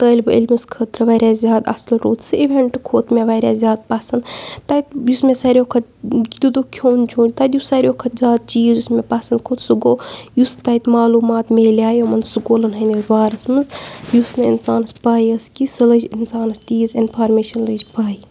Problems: none marked